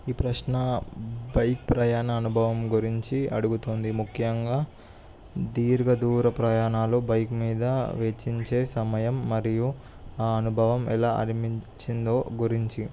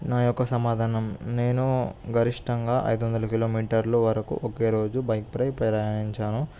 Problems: none marked